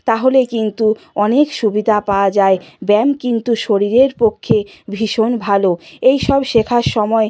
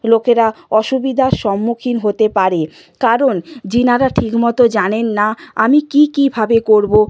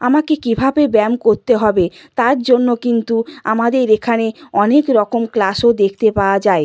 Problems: background sounds at intervals